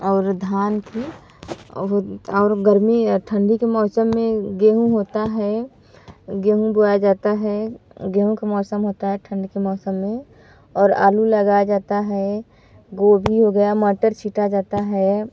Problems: background sounds at intervals